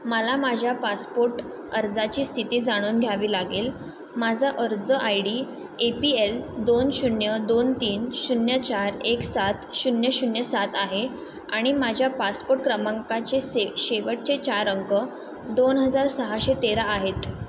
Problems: constant background noise